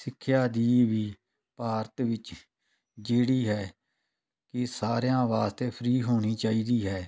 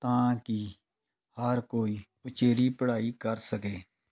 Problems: none marked